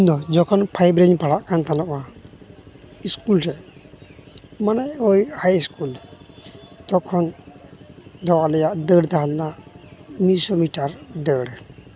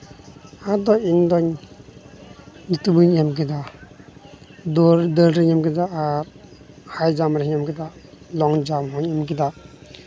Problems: none marked